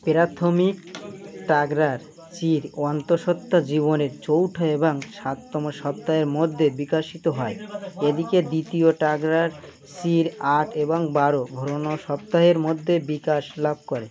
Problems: background conversations at intervals